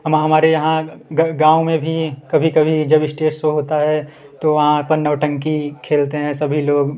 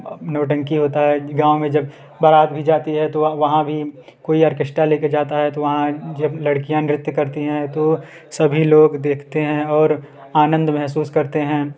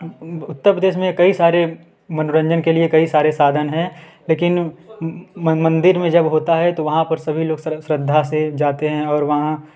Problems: background sounds at intervals, continuous background conversations